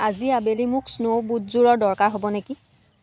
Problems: background sounds at intervals